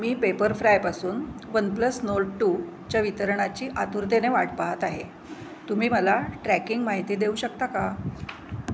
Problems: background sounds at intervals